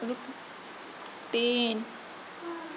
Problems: background sounds at intervals